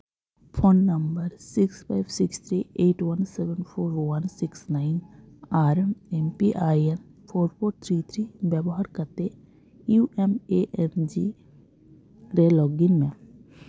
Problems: none marked